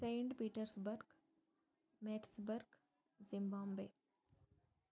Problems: low volume